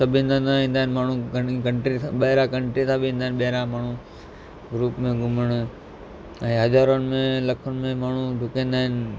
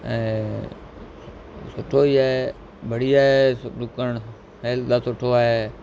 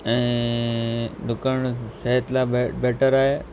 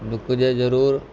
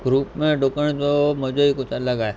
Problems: constant background noise